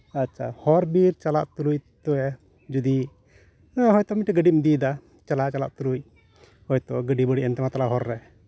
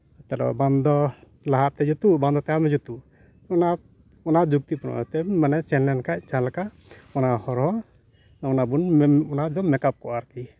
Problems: background sounds at intervals, background conversations at intervals